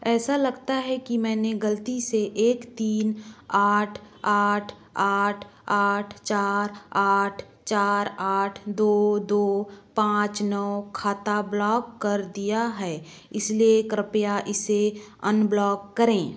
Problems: background sounds at intervals